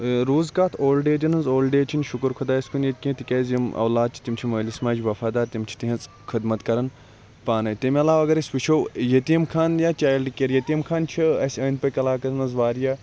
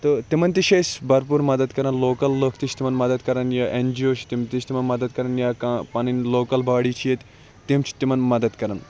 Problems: constant background noise